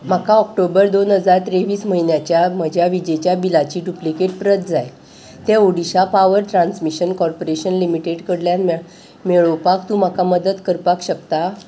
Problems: background sounds at intervals